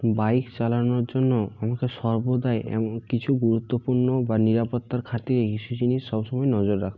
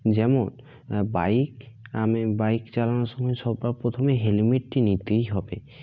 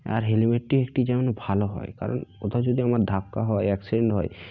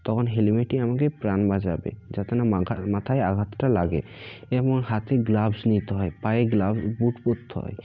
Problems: constant background noise, background conversations at intervals